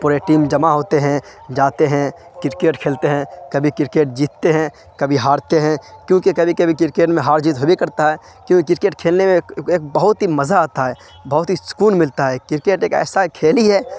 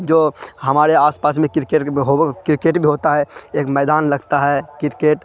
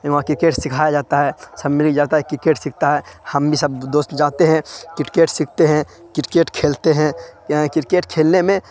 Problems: constant background noise